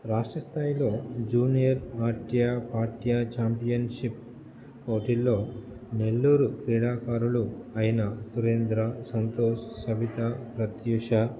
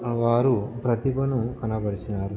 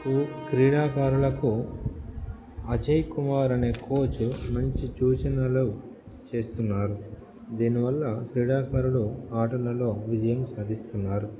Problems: background sounds at intervals, background conversations at intervals